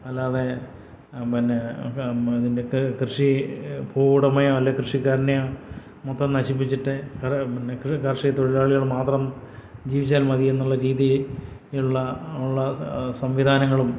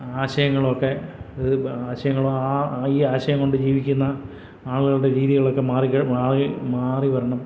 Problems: none marked